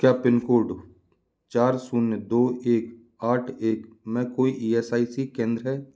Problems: background sounds at intervals